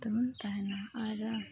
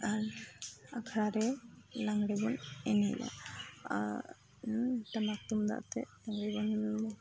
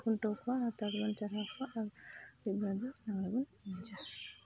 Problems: constant background noise, low volume